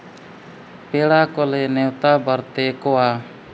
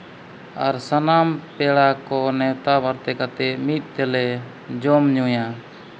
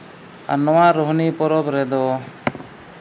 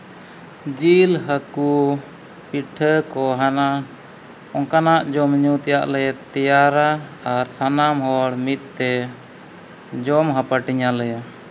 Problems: none marked